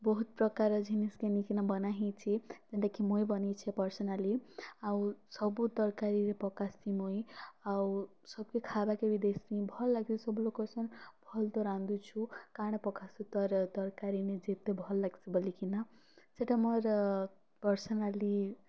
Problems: none marked